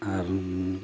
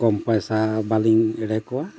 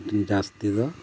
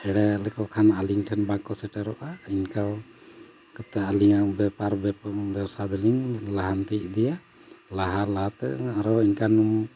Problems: background sounds at intervals